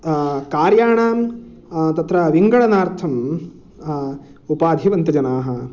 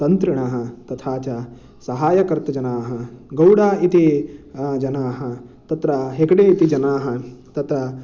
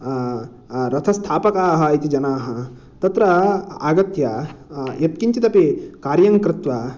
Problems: none marked